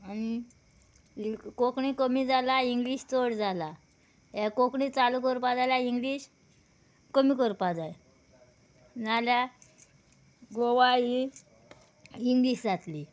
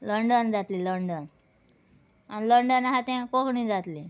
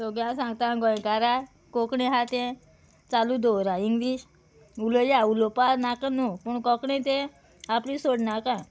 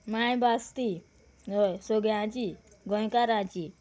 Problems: background sounds at intervals